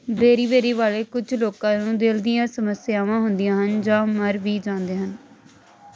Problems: constant background noise